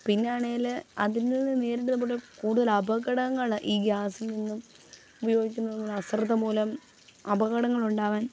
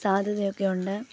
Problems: constant background noise, low volume